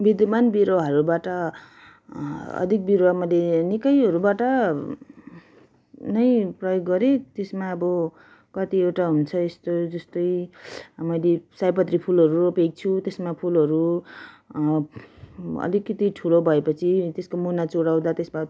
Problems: none marked